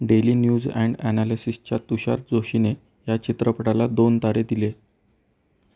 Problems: none marked